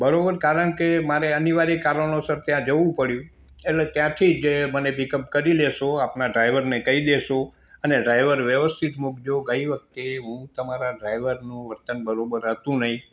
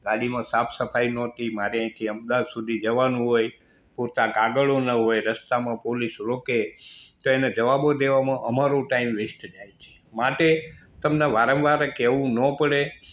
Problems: constant background noise